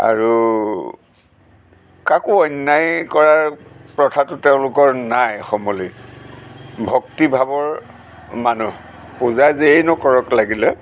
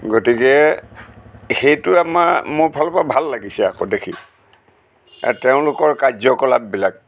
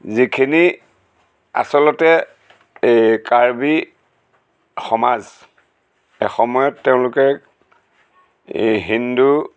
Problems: constant background noise